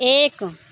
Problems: none marked